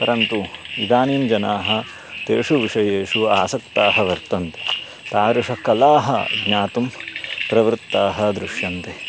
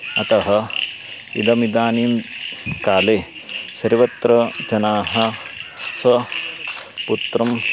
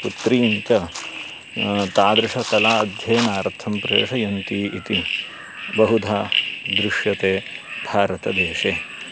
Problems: constant background noise